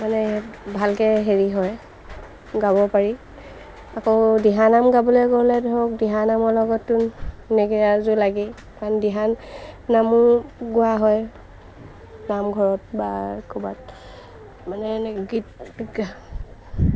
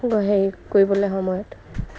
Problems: constant background noise